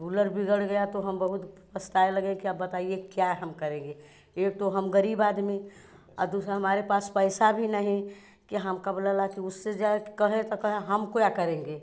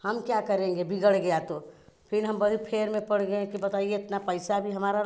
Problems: background sounds at intervals